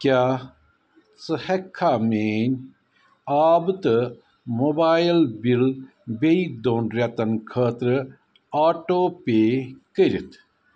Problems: none marked